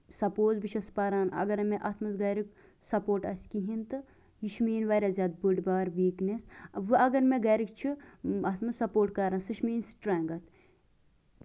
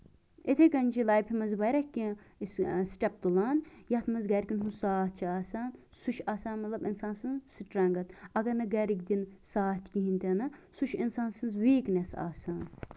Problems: background sounds at intervals